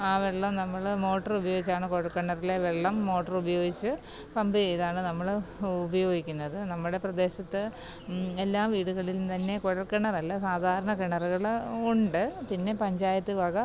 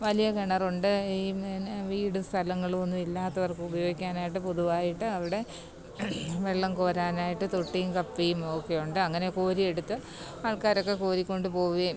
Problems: constant background noise, low volume